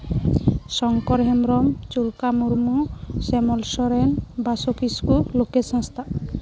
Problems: background sounds at intervals